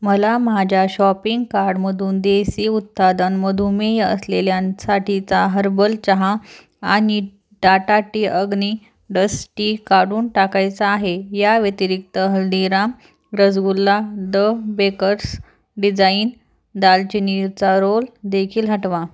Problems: background sounds at intervals